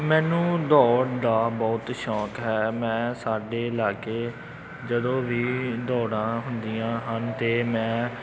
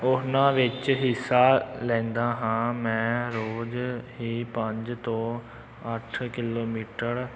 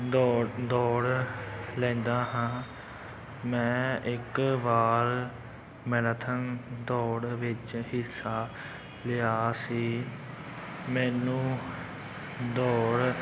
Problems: background sounds at intervals